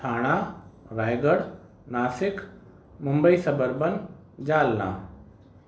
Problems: constant background noise